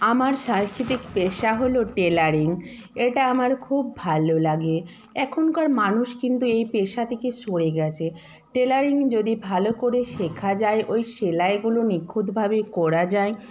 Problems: continuous background conversations